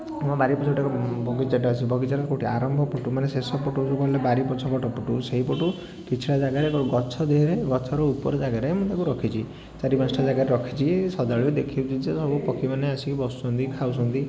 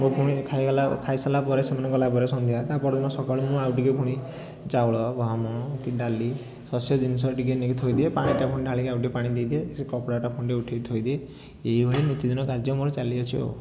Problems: background sounds at intervals, continuous background conversations